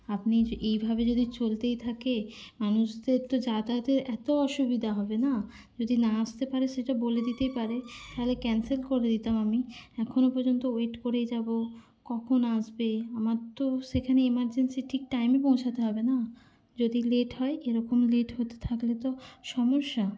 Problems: constant background noise, background conversations at intervals